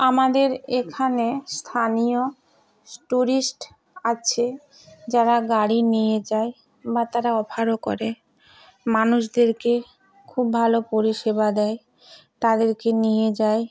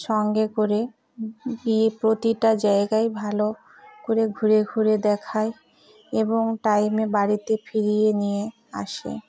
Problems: none marked